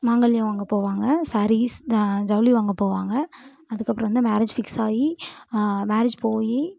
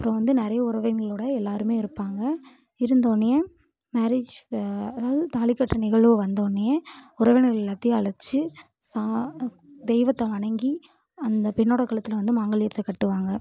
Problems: background conversations at intervals